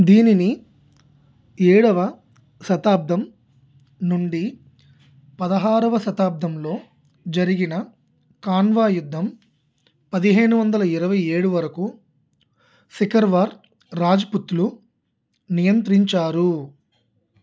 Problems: none marked